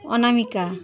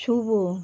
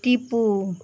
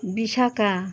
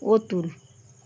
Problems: none marked